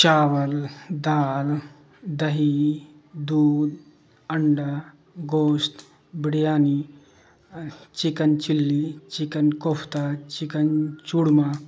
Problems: constant background noise